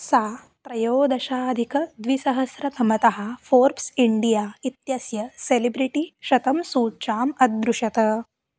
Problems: constant background noise